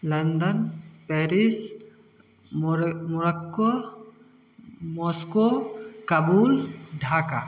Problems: none marked